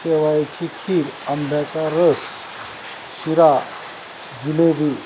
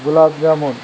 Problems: constant background noise